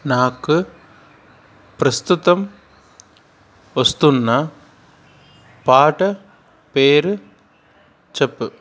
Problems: constant background noise, background conversations at intervals